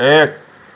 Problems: constant background noise